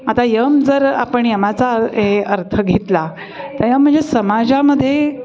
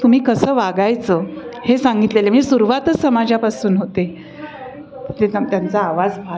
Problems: constant background noise, continuous background conversations